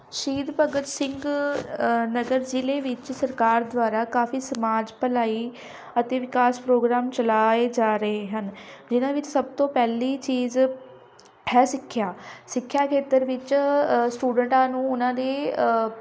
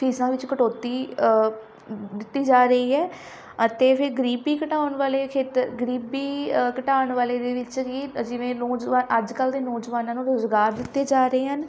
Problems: constant background noise